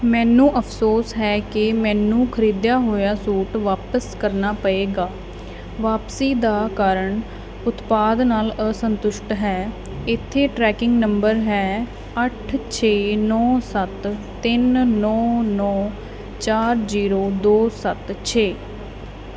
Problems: none marked